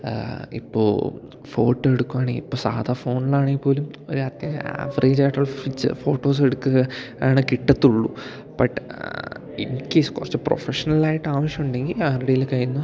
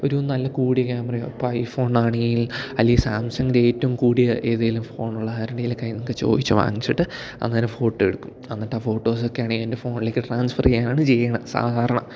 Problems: none marked